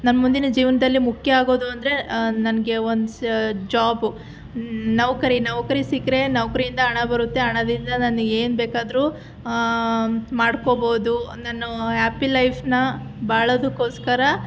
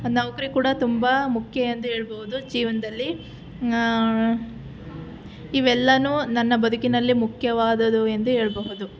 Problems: none marked